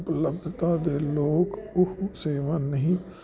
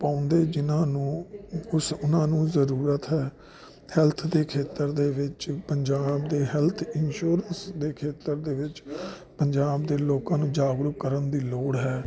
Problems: constant background noise